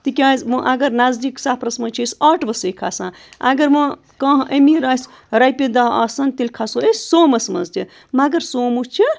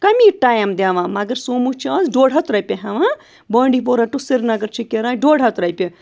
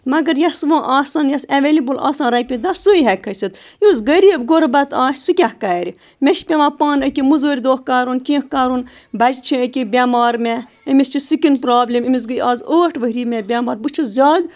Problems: constant background noise